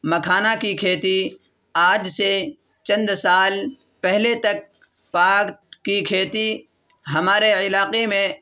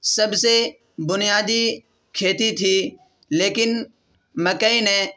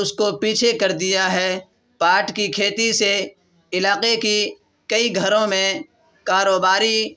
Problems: none marked